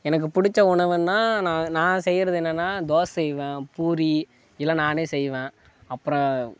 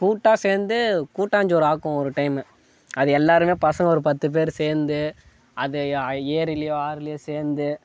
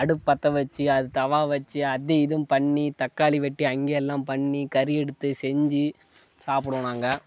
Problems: background sounds at intervals, background conversations at intervals